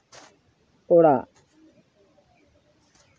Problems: background conversations at intervals